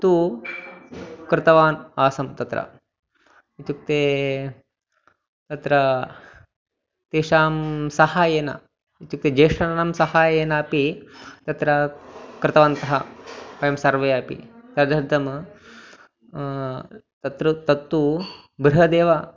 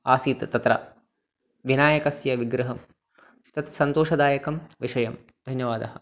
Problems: background sounds at intervals